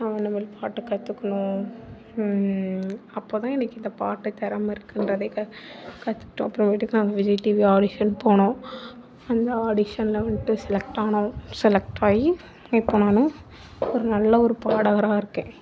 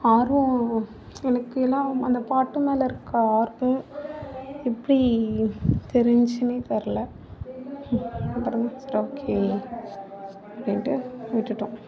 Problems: background sounds at intervals